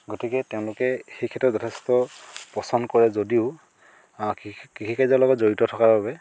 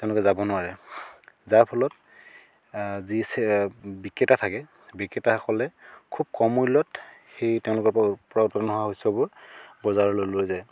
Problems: constant background noise